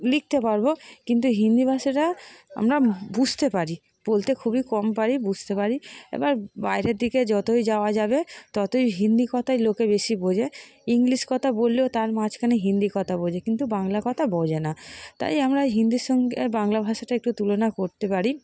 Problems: constant background noise